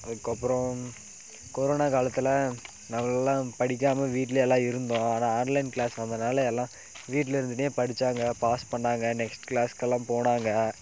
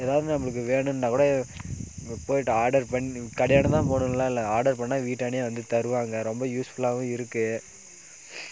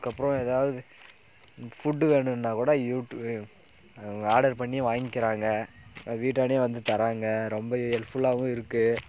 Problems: none marked